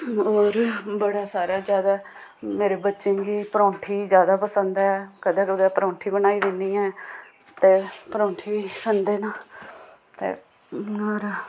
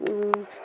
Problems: none marked